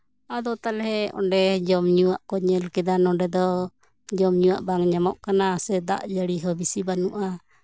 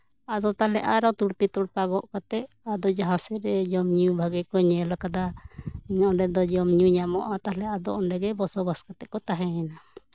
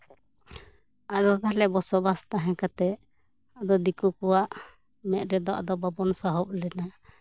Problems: background conversations at intervals